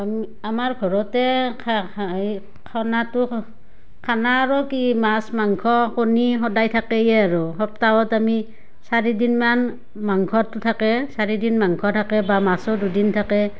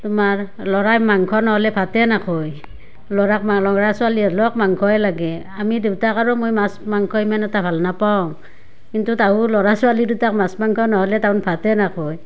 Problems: none marked